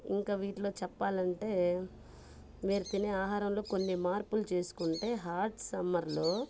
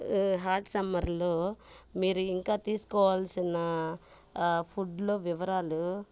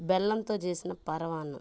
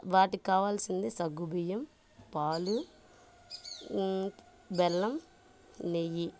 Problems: background sounds at intervals, low volume